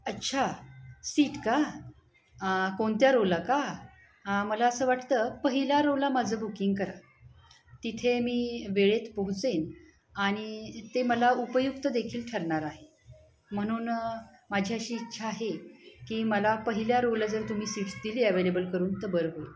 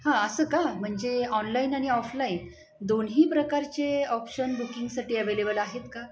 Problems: background sounds at intervals, continuous background conversations